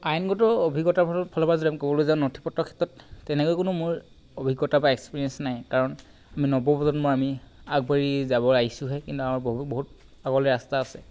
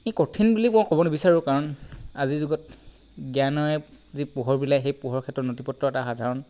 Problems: none marked